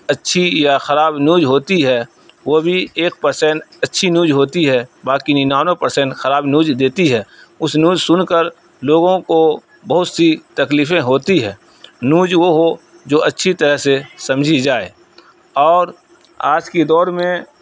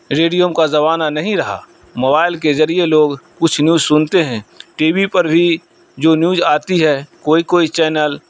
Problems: none marked